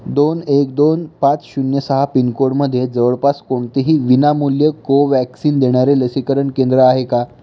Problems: none marked